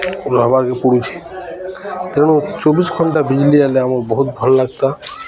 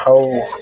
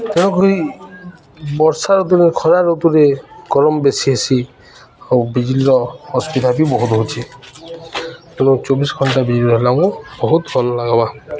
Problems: none marked